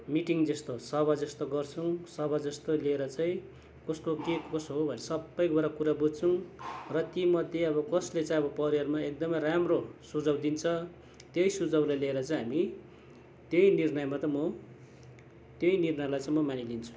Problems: constant background noise